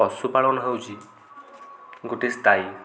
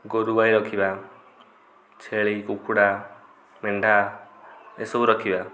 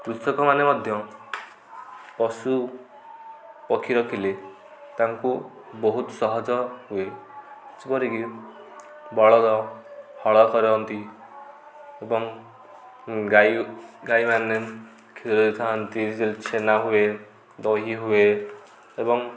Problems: constant background noise, continuous background conversations